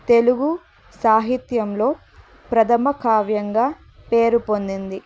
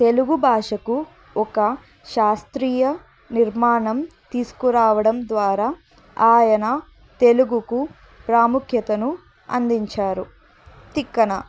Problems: none marked